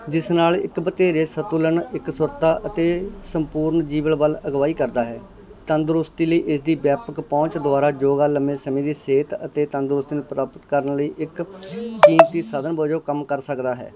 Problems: constant background noise